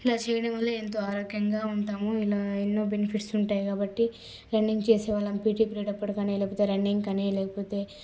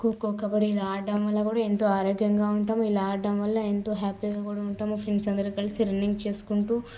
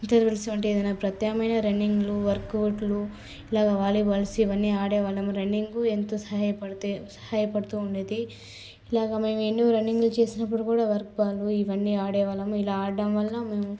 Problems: low volume